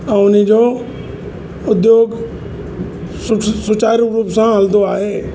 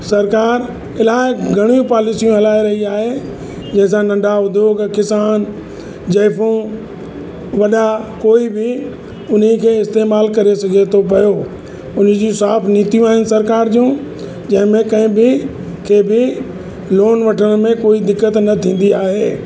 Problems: constant background noise, echo